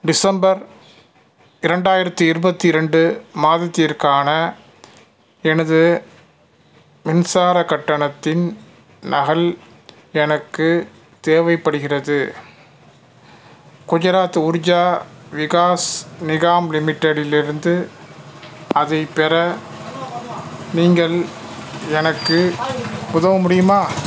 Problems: background sounds at intervals, background conversations at intervals